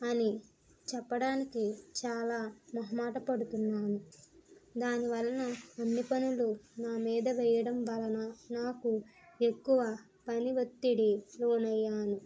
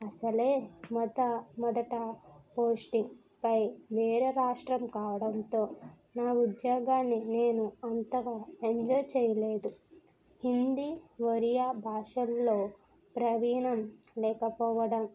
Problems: constant background noise